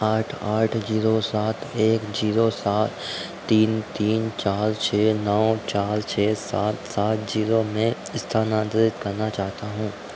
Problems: background sounds at intervals